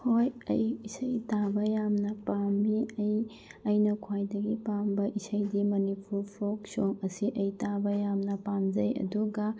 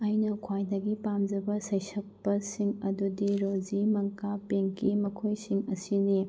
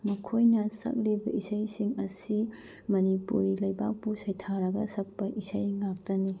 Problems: low volume